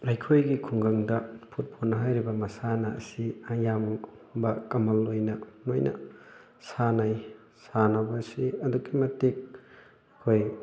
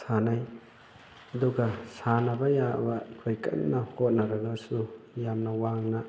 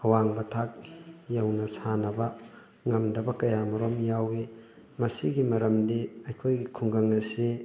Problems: background sounds at intervals